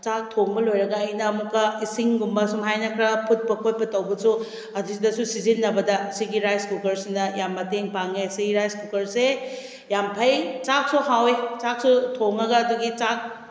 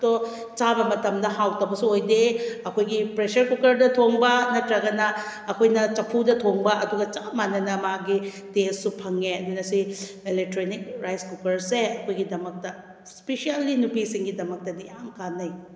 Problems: none marked